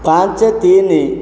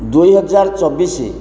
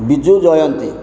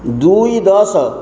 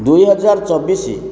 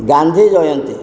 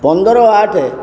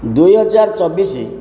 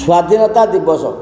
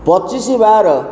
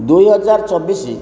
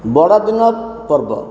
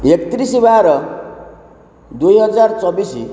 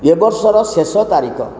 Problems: constant background noise